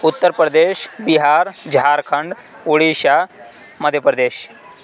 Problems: background sounds at intervals